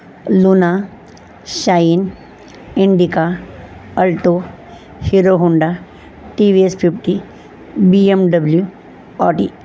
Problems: none marked